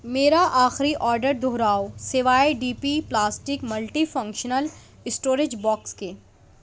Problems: none marked